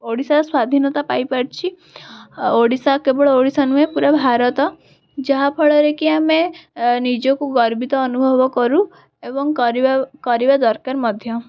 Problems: none marked